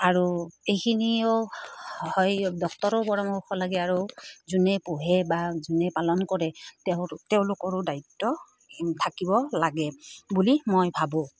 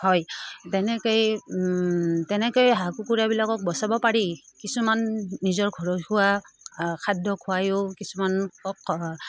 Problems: none marked